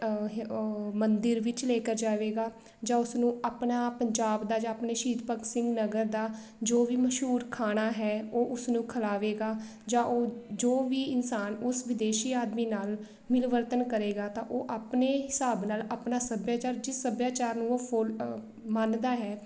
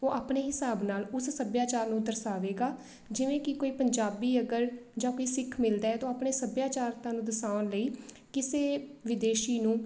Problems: background sounds at intervals